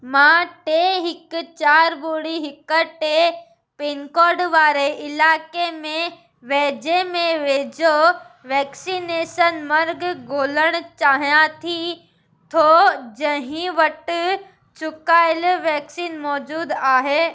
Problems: constant background noise